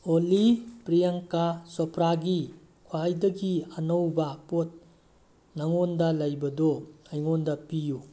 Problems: constant background noise